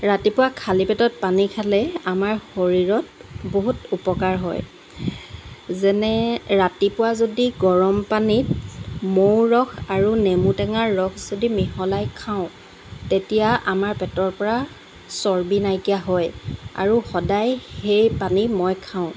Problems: constant background noise